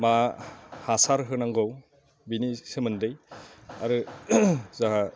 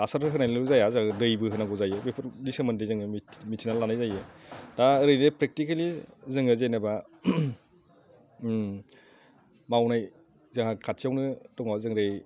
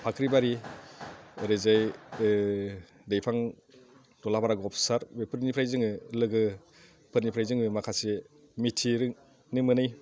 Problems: none marked